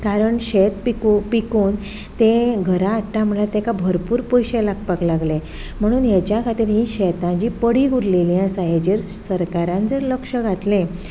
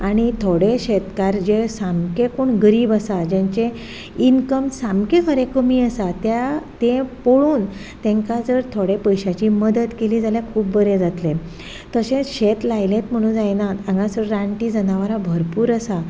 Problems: background sounds at intervals